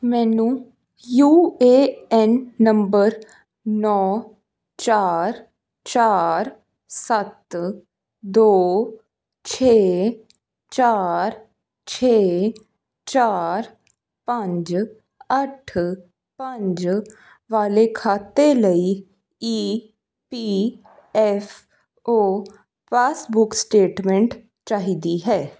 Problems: none marked